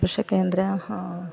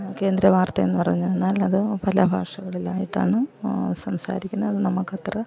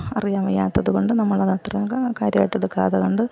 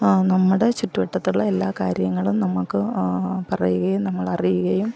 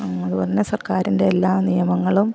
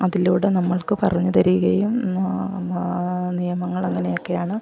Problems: background sounds at intervals, background conversations at intervals, low volume